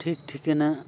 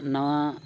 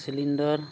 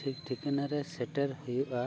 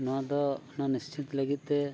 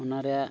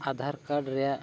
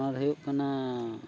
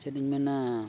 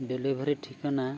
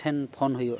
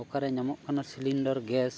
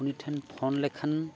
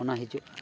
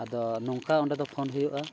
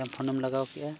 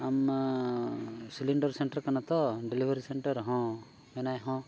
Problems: constant background noise